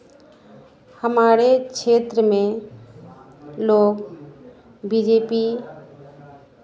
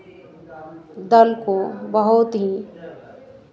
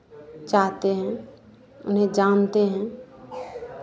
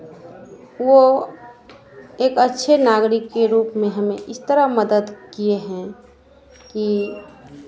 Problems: constant background noise